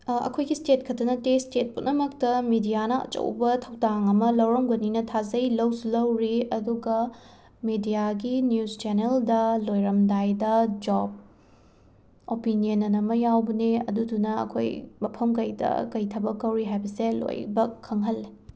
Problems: none marked